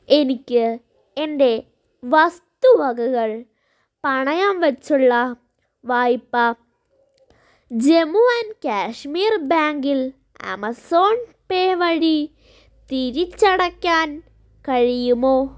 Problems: none marked